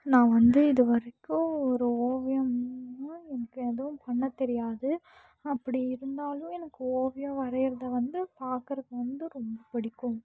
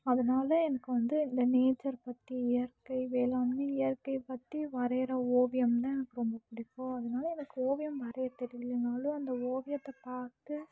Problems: low volume